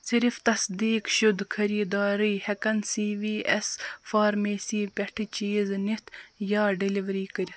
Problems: none marked